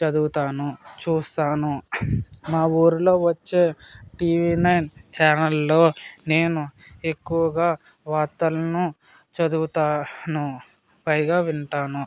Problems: none marked